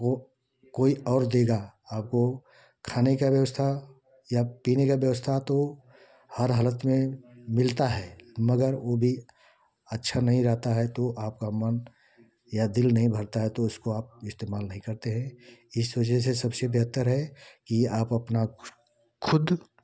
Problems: constant background noise